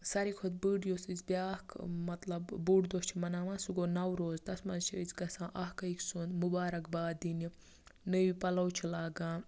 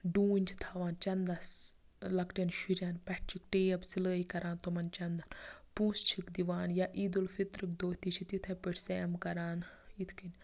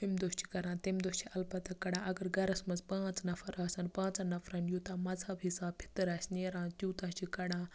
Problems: background sounds at intervals, low volume